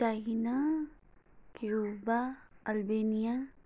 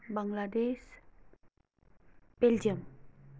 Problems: none marked